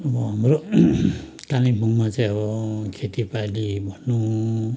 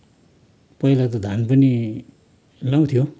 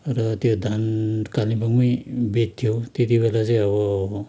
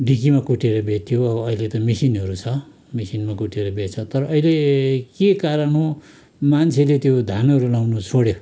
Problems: background conversations at intervals